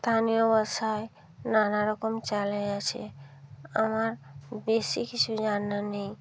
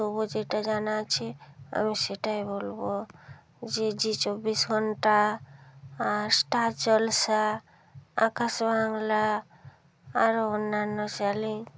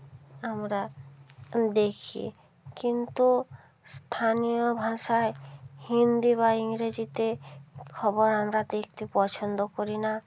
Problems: none marked